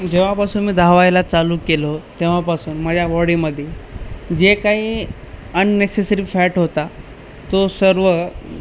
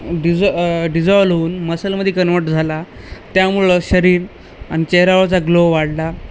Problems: constant background noise